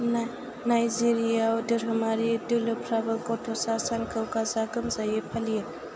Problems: constant background noise